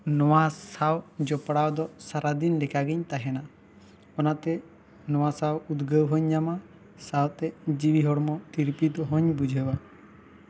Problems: none marked